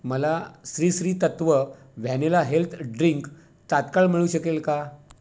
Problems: none marked